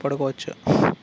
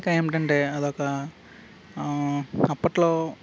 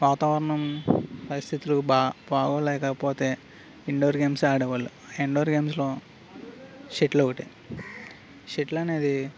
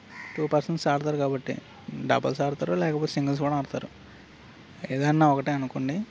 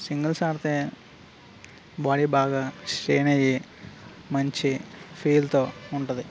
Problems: background sounds at intervals